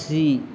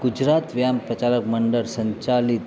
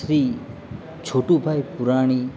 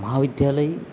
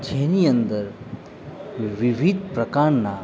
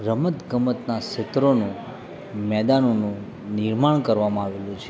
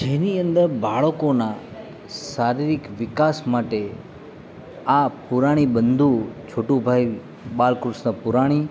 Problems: constant background noise